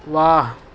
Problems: constant background noise